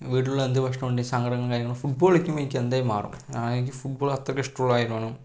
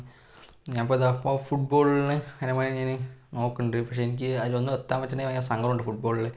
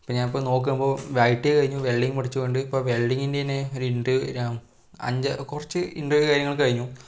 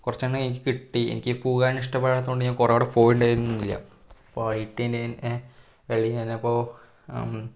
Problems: none marked